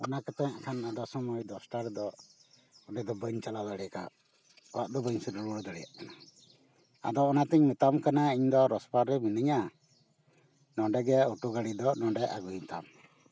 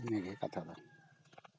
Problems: none marked